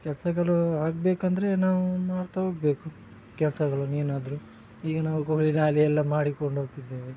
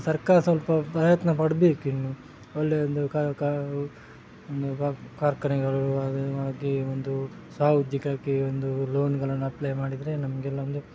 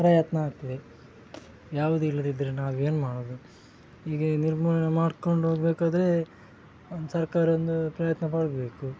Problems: none marked